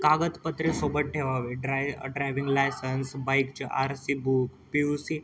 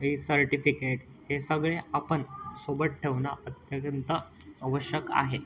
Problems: constant background noise, continuous background conversations